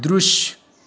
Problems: background sounds at intervals